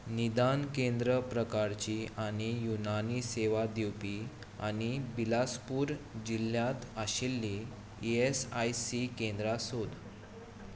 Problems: none marked